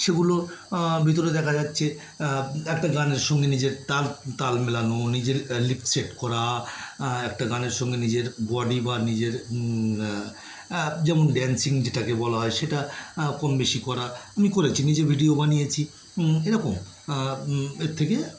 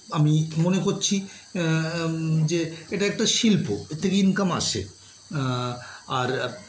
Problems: background sounds at intervals